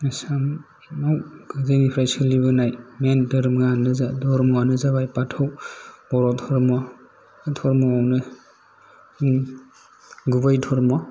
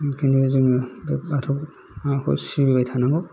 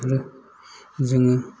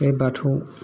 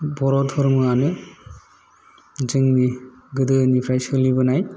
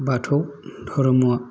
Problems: low volume